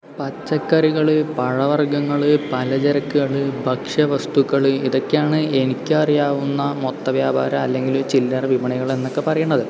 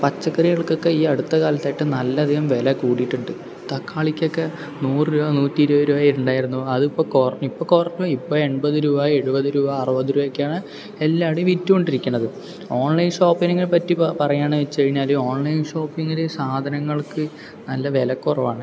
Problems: background sounds at intervals